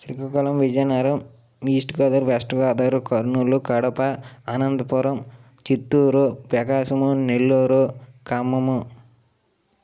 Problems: none marked